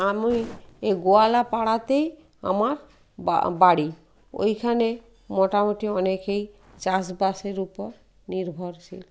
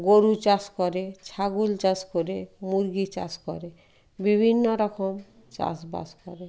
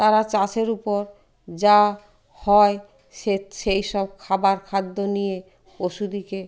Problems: none marked